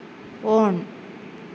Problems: none marked